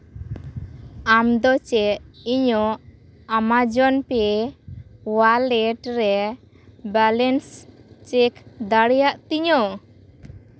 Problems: constant background noise